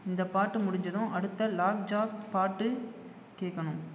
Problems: background conversations at intervals